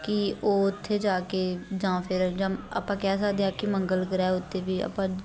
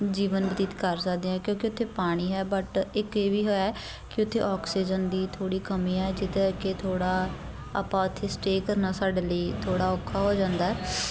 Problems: continuous background conversations